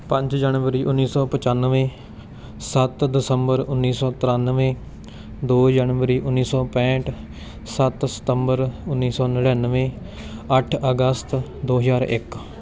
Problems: none marked